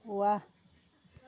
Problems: constant background noise